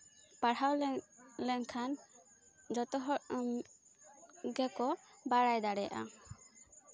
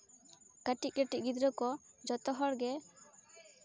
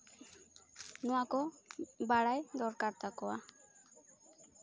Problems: constant background noise, continuous background conversations